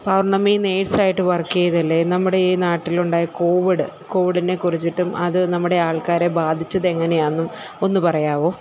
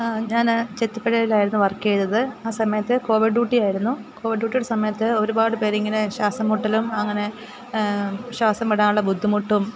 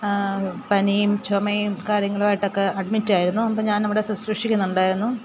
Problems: none marked